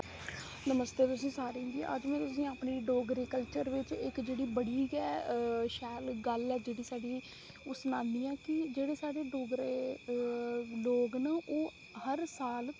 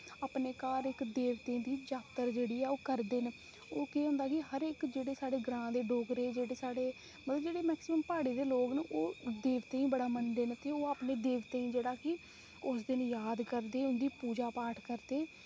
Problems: constant background noise, low volume